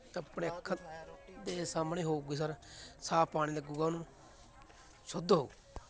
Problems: continuous background conversations